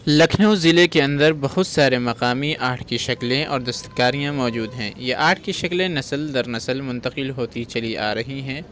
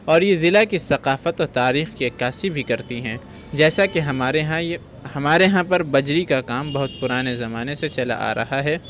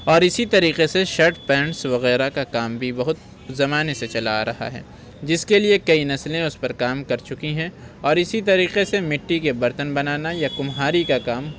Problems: constant background noise